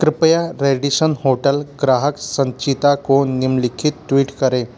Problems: none marked